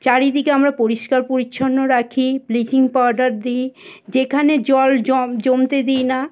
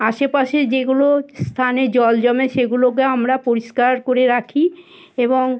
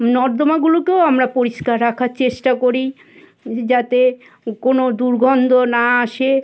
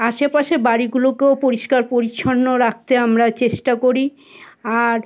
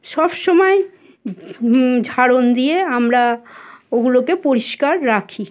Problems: constant background noise, background conversations at intervals